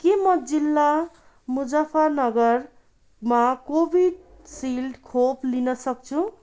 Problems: none marked